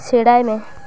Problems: none marked